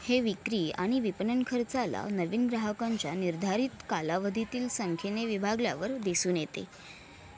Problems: constant background noise, background conversations at intervals